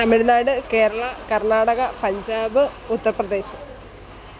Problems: constant background noise